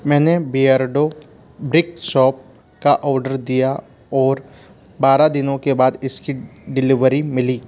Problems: constant background noise